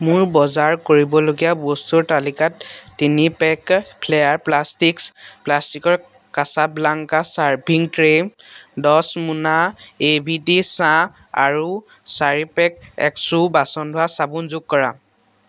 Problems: none marked